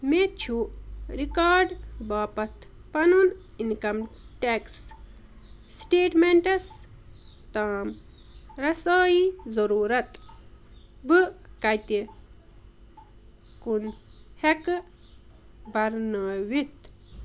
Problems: none marked